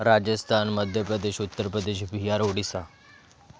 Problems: constant background noise, background conversations at intervals